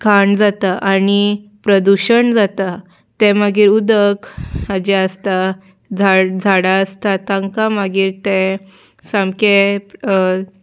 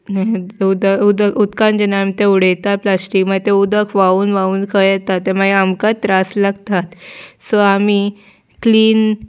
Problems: background sounds at intervals